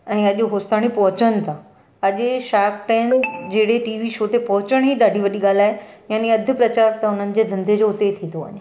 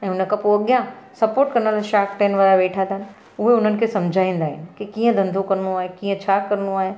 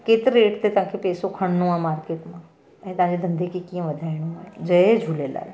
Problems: constant background noise